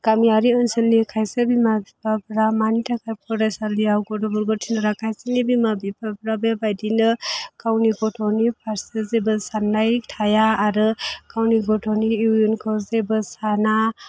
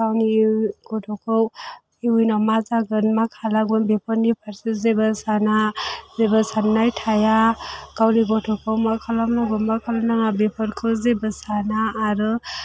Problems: background sounds at intervals